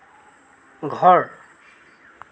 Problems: none marked